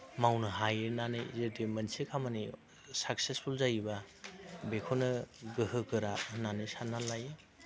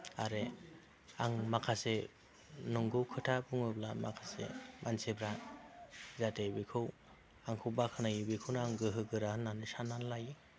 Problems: low volume